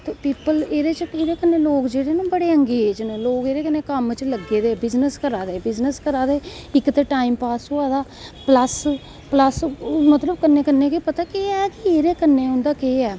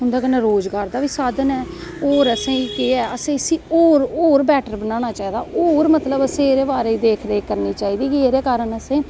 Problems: none marked